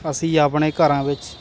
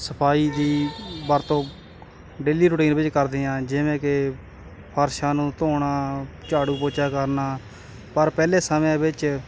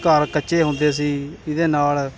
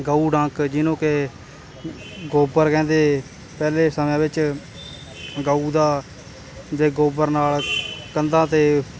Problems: constant background noise